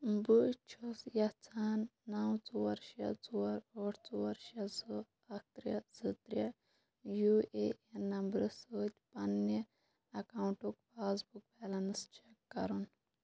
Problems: constant background noise, low volume